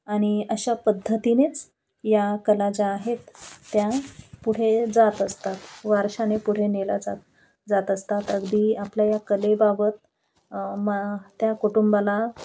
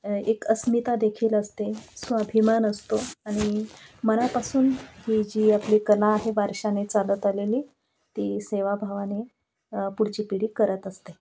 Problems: none marked